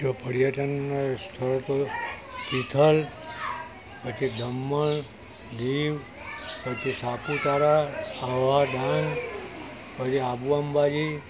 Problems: constant background noise